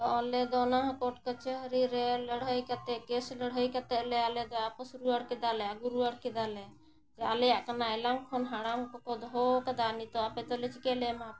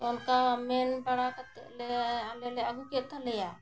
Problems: constant background noise